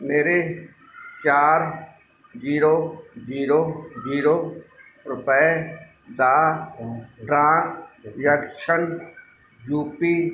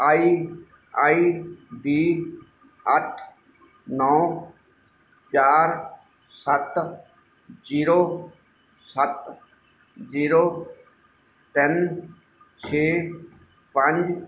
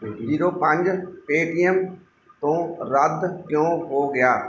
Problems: none marked